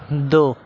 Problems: constant background noise